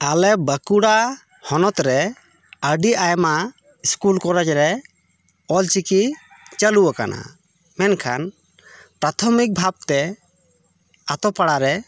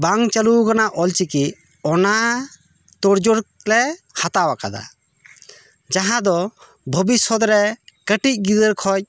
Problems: background sounds at intervals